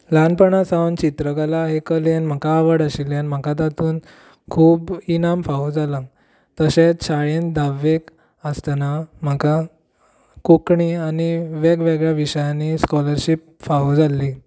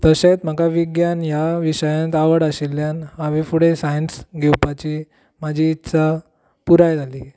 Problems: none marked